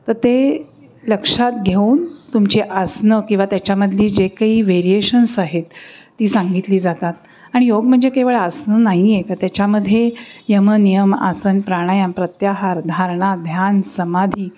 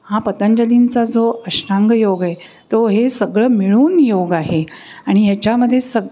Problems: none marked